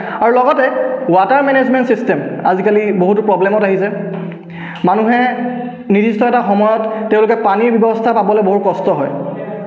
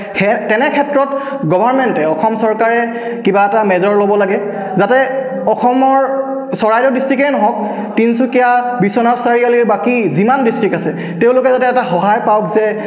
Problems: background conversations at intervals, echo